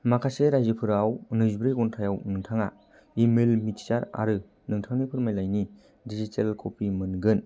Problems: low volume